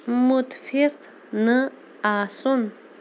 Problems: constant background noise